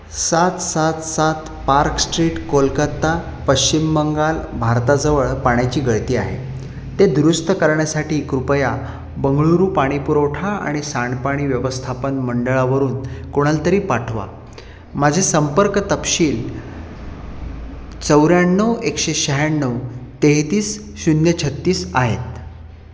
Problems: constant background noise, echo